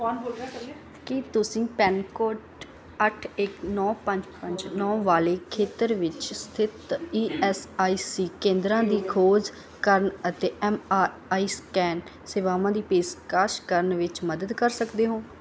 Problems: continuous background conversations